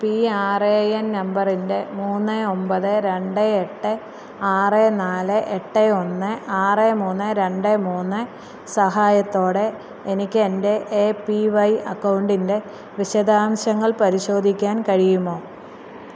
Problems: constant background noise